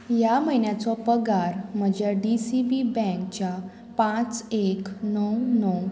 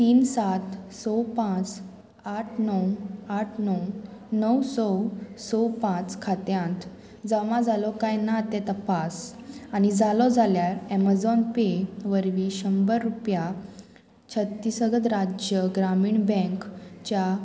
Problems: constant background noise